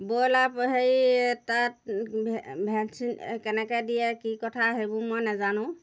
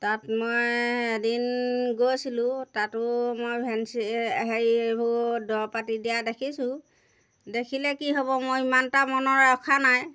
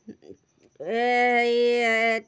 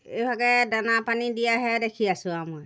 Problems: background sounds at intervals